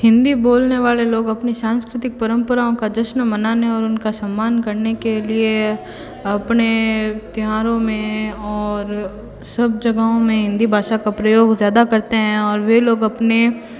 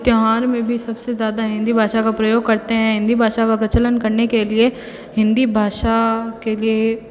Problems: constant background noise, continuous background conversations